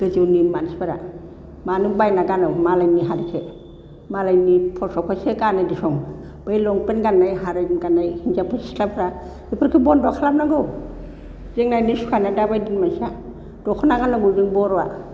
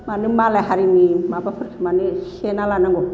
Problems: constant background noise